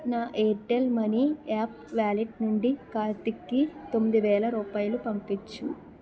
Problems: continuous background conversations